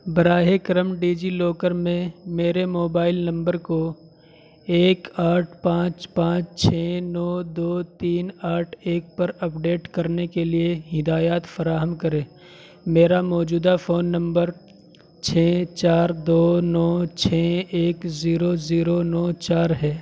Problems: constant background noise